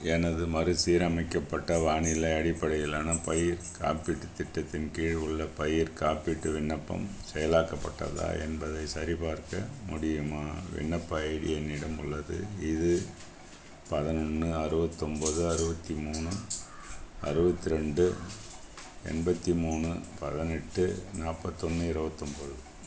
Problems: constant background noise